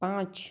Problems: none marked